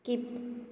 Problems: echo, low volume